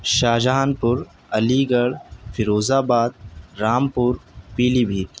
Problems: none marked